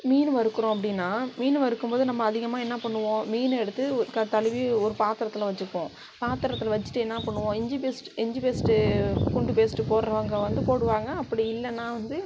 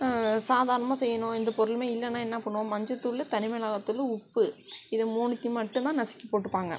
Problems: none marked